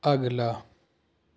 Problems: constant background noise